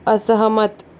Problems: constant background noise